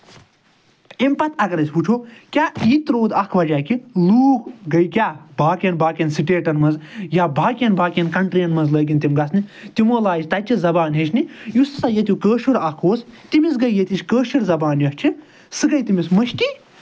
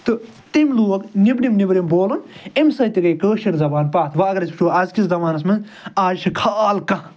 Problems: none marked